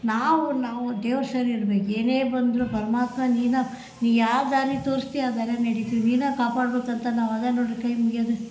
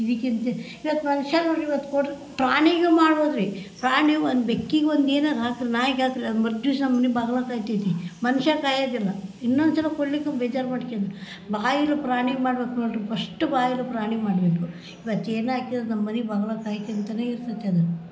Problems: none marked